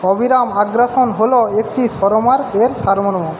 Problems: constant background noise